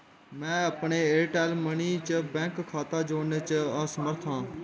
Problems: constant background noise